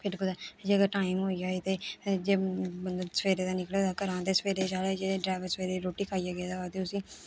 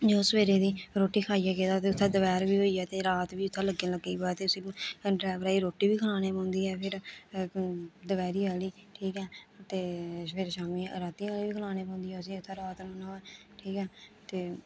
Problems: constant background noise